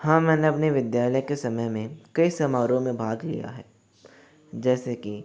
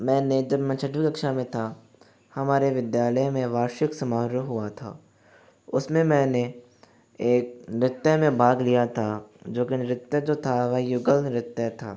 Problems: background sounds at intervals